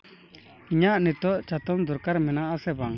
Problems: none marked